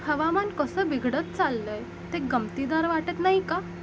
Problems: constant background noise